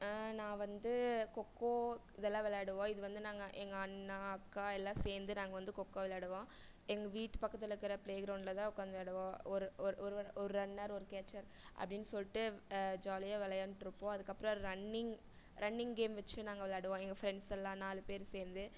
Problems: low volume